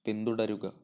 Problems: low volume